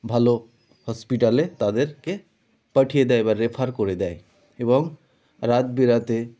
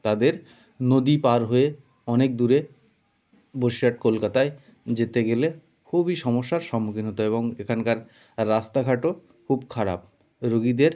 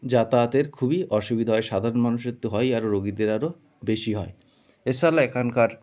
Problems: none marked